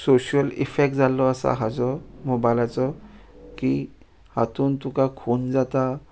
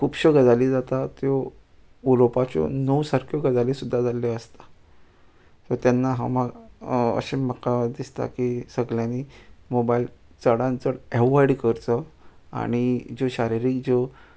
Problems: none marked